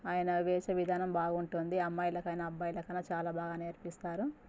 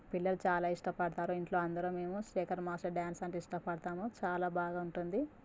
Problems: constant background noise, low volume